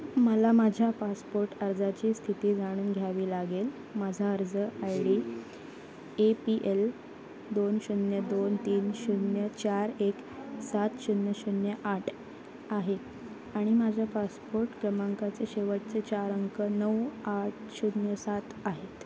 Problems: constant background noise, continuous background conversations